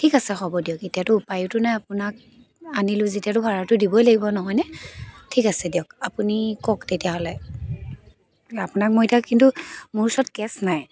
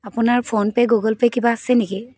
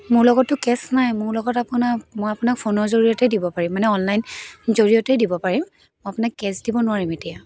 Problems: constant background noise